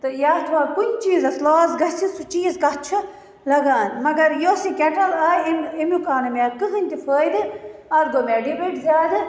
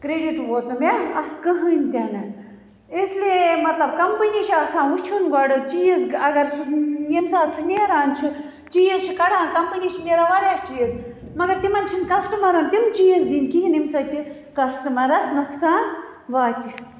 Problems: none marked